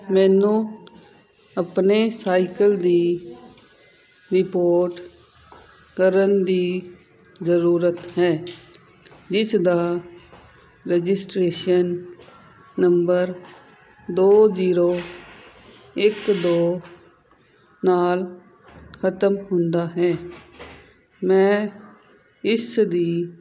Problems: constant background noise